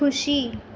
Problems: constant background noise